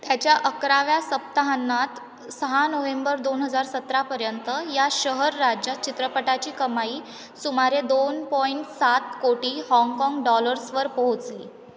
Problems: background sounds at intervals